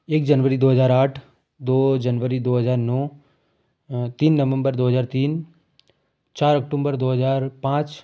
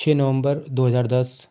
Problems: none marked